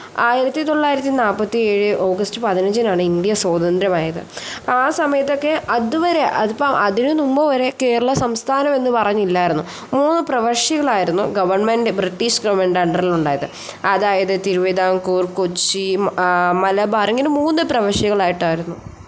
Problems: none marked